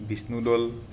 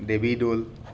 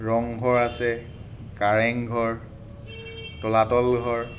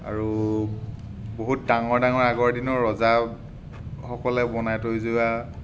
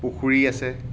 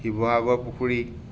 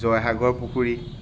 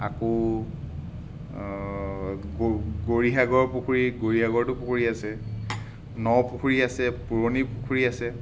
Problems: background sounds at intervals